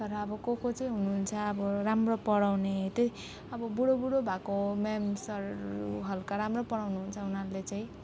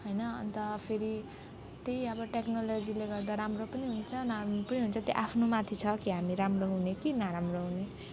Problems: none marked